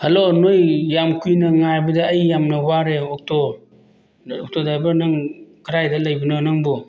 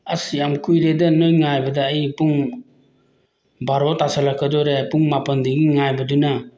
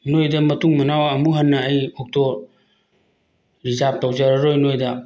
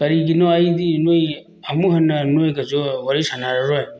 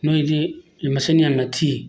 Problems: none marked